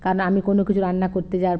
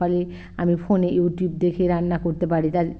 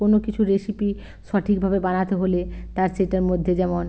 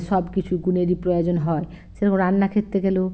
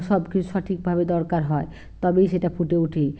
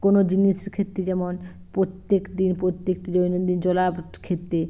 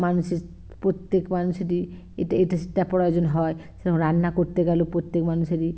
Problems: background sounds at intervals